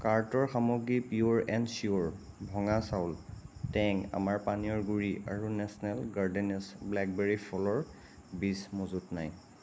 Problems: constant background noise